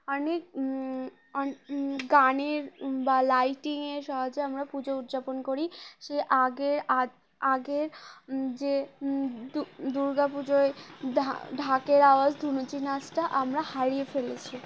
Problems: background sounds at intervals